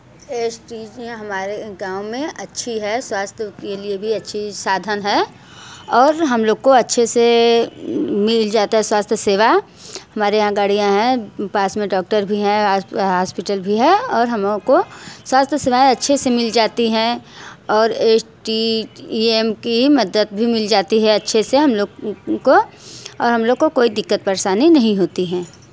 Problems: constant background noise